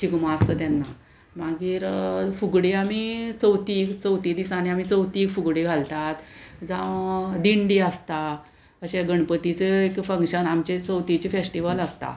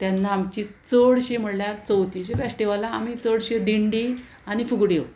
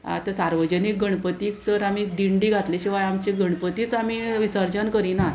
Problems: constant background noise